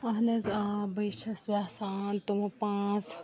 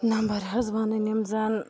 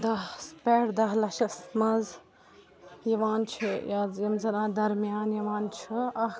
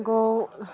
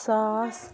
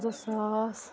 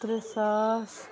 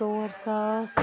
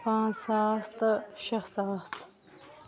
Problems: background sounds at intervals, background conversations at intervals